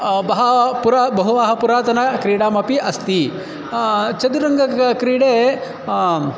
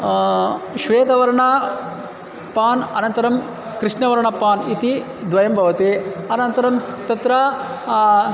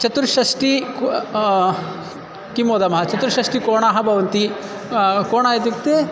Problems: constant background noise